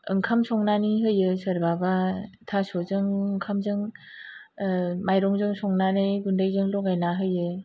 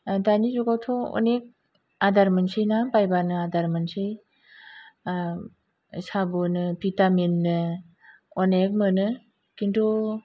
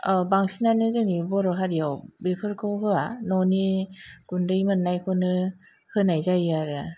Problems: low volume